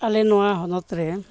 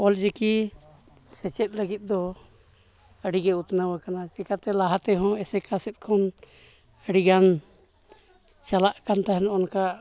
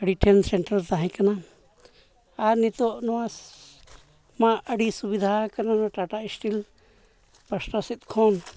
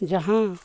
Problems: none marked